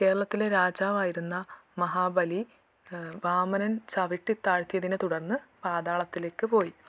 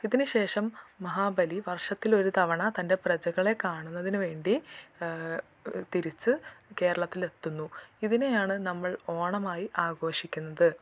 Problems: none marked